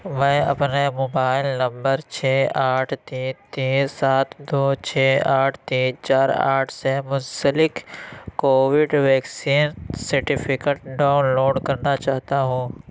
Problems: none marked